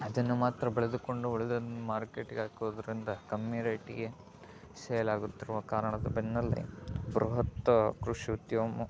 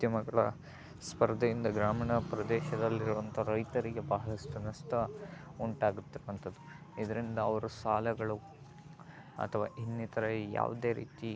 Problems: background sounds at intervals, background conversations at intervals